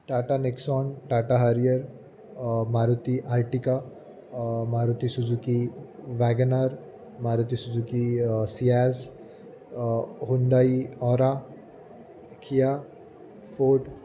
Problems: none marked